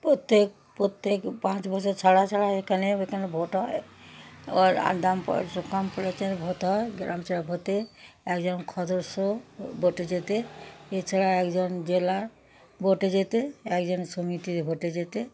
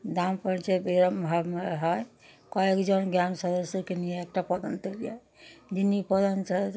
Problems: background sounds at intervals